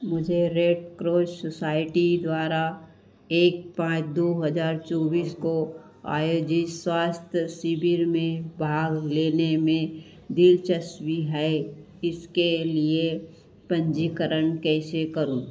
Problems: constant background noise, echo